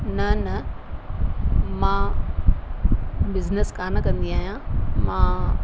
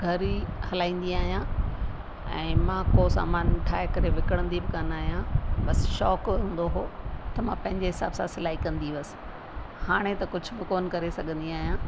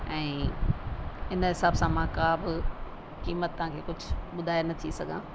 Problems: constant background noise